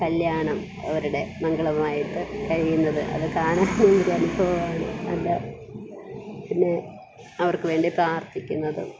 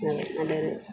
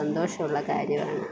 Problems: none marked